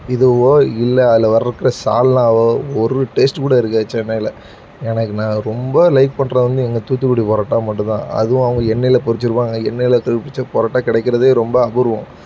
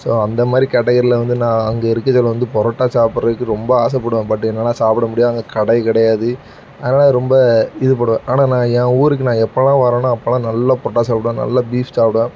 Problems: background sounds at intervals